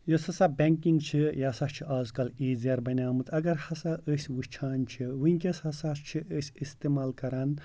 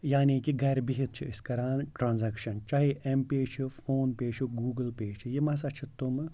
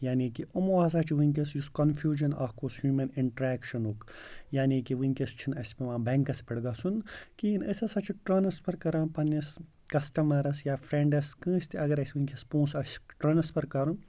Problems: background sounds at intervals